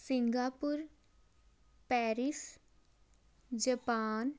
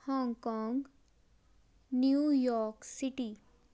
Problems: none marked